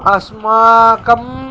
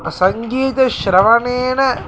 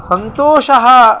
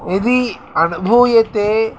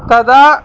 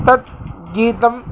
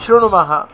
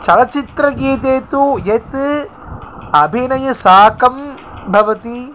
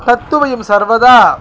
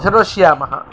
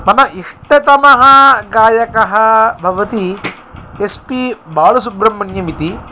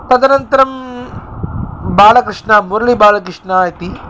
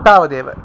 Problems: constant background noise